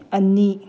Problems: low volume